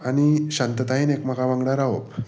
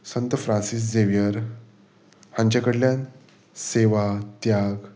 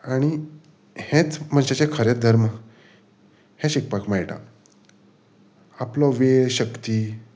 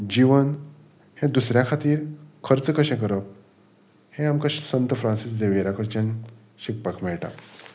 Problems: background sounds at intervals